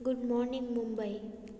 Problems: constant background noise, echo